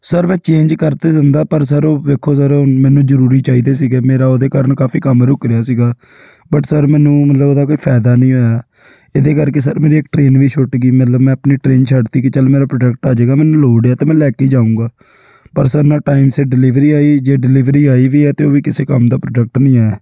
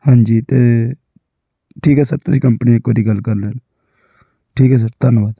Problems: background sounds at intervals